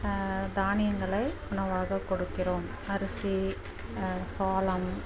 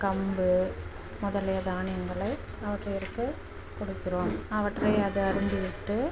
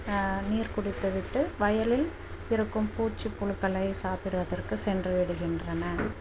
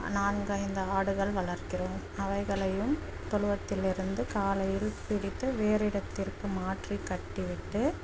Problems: constant background noise, low volume